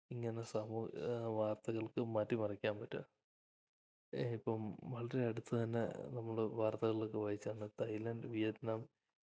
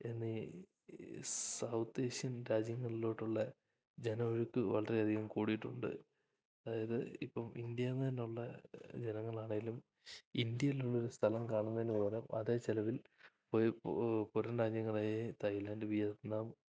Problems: low volume